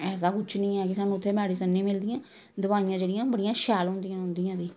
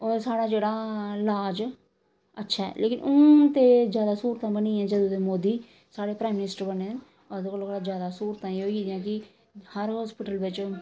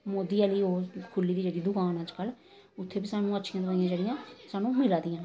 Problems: none marked